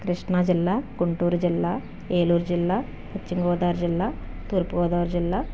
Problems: background sounds at intervals